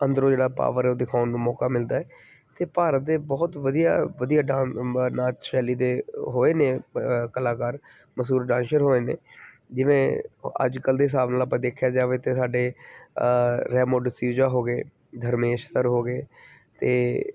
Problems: background sounds at intervals